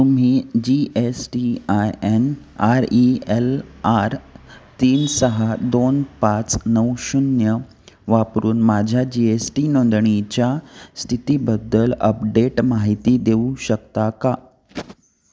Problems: constant background noise